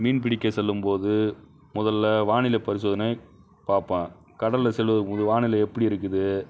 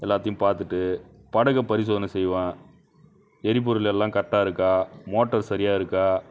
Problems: constant background noise